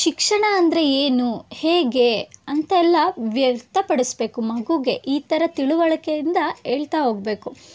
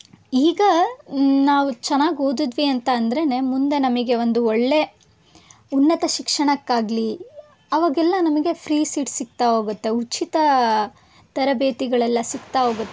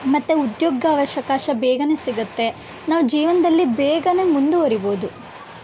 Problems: background sounds at intervals